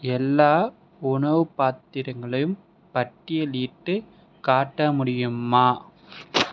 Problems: none marked